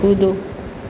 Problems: constant background noise